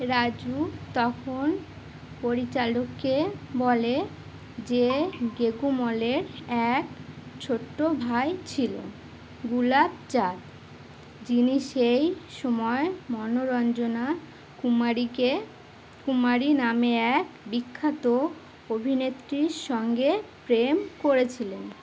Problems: continuous background conversations